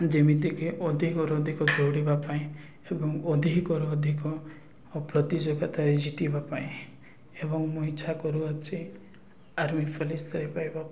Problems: none marked